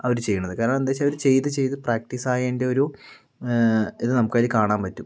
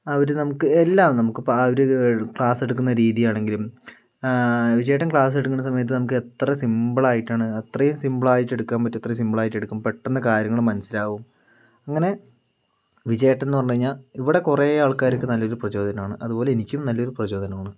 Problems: none marked